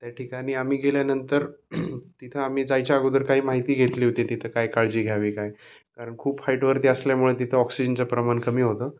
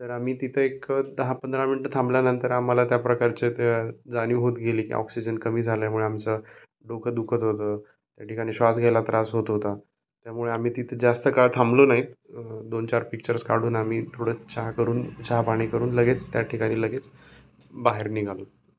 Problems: none marked